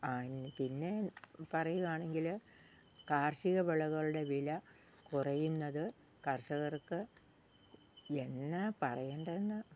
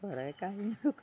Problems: low volume